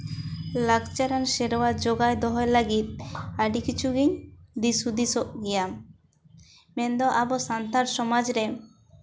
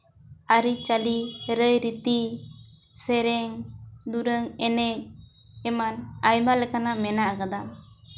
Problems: none marked